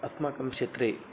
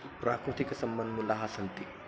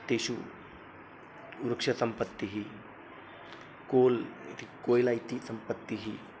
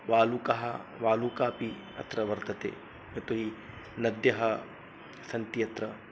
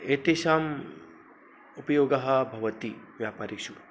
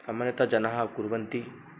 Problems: constant background noise